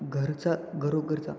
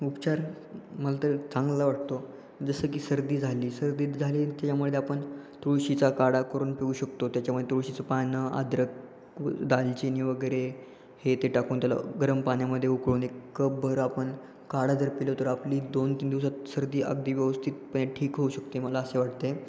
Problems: constant background noise